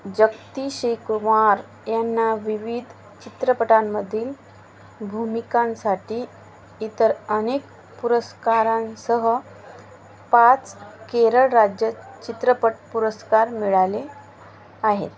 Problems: constant background noise, background conversations at intervals